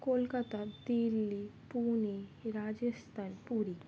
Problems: none marked